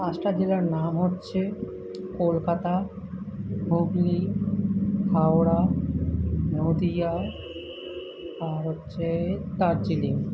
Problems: none marked